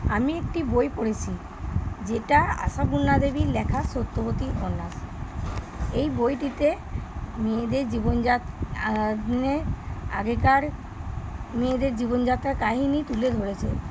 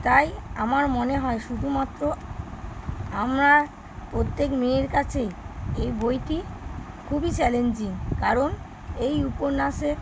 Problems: none marked